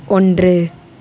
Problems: none marked